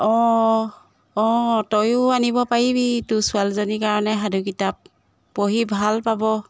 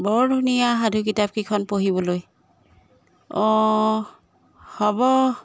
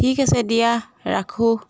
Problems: none marked